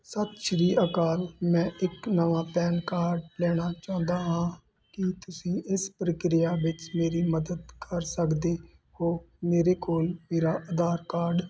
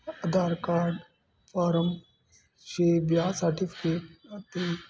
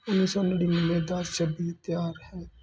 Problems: none marked